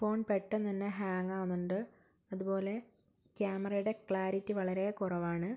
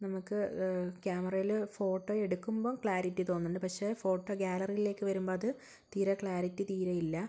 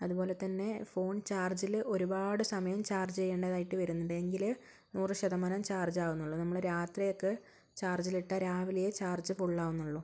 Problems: low volume